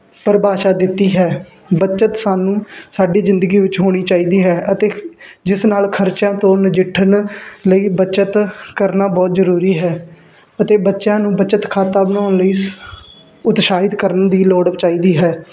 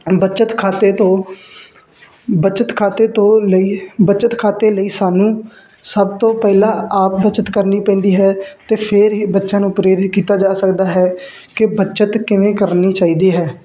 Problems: constant background noise